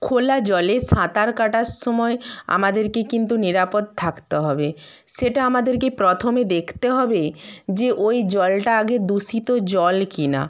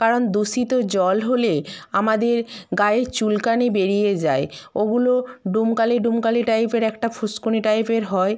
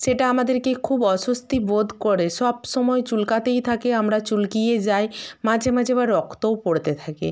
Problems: none marked